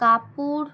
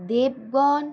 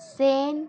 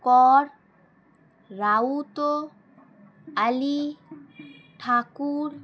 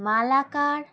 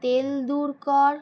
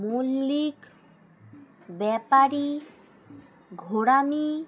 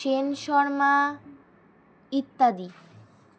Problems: constant background noise